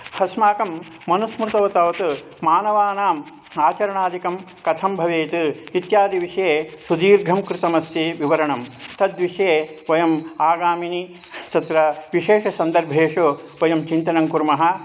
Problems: constant background noise